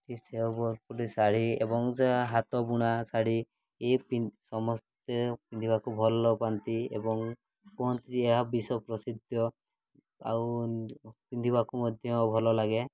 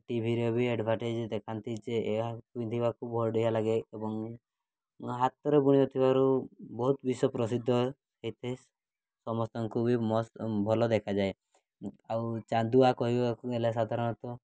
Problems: none marked